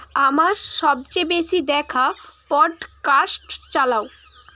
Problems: none marked